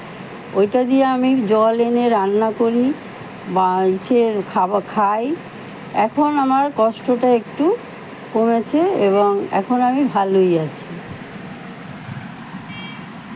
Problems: constant background noise, background conversations at intervals